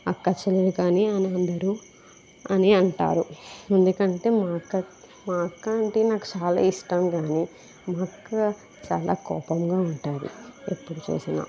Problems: constant background noise